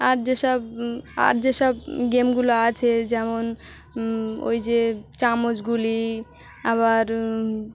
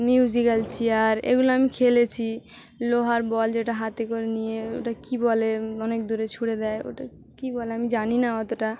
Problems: constant background noise, continuous background conversations